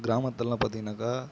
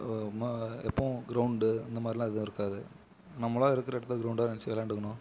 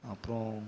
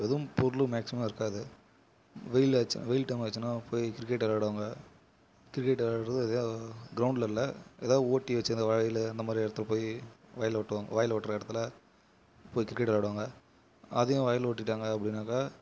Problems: none marked